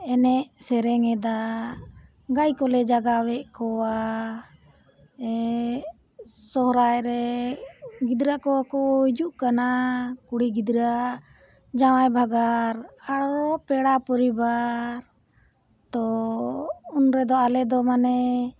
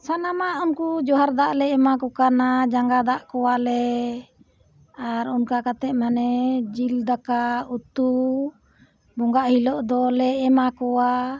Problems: background sounds at intervals